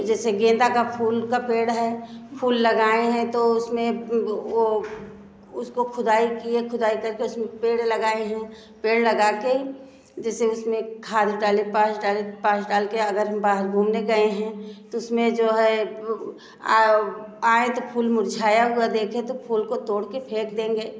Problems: none marked